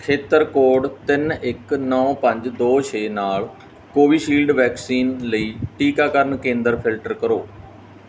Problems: background sounds at intervals